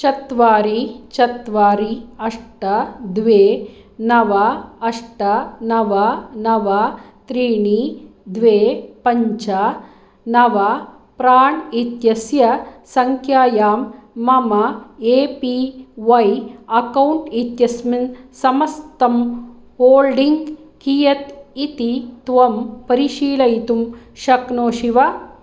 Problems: none marked